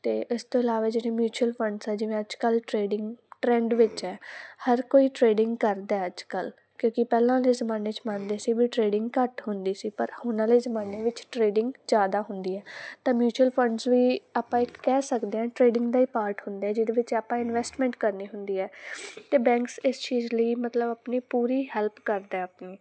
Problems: none marked